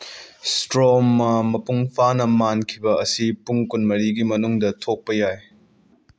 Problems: none marked